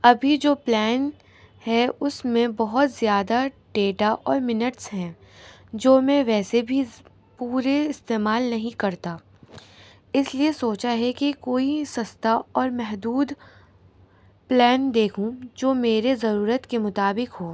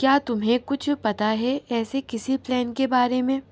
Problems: constant background noise